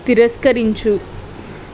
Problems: constant background noise